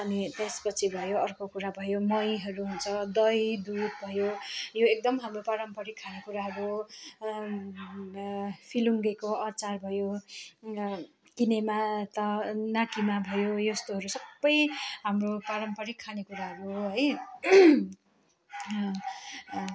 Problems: none marked